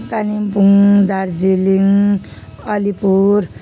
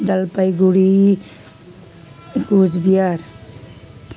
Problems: constant background noise